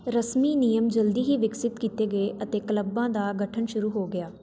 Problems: none marked